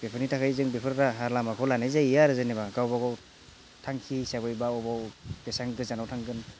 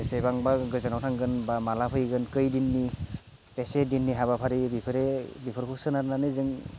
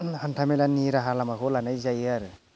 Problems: none marked